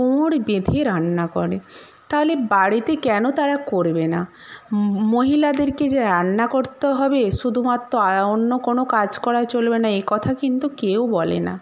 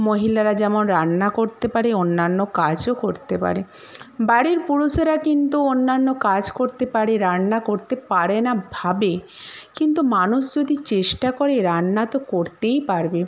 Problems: none marked